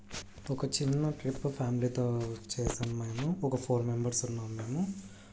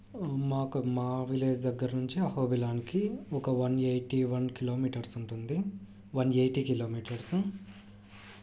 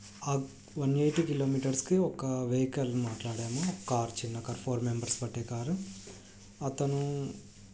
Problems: low volume